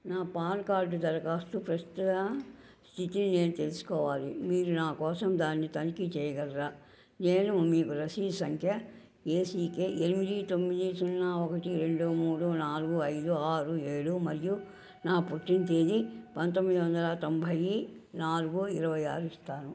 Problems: none marked